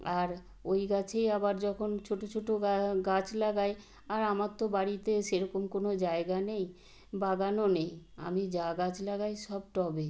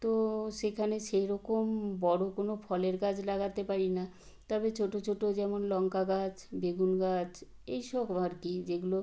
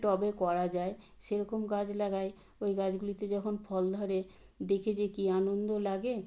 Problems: none marked